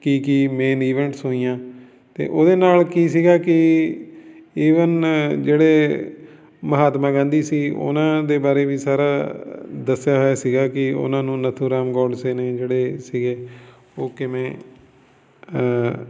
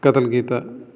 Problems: none marked